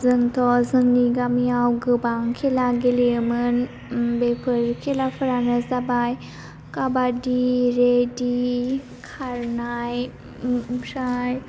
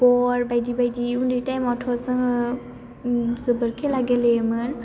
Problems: constant background noise